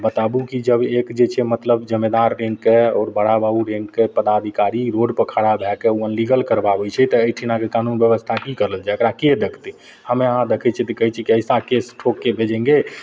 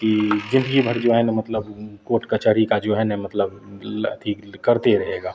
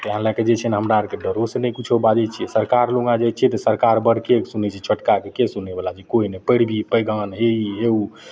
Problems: none marked